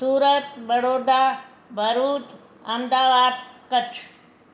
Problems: constant background noise